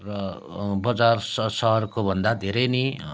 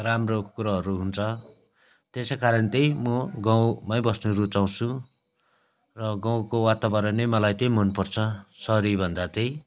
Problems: none marked